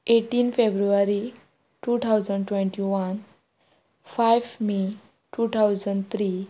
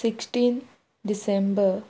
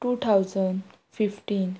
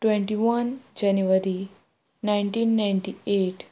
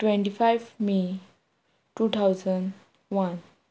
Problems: none marked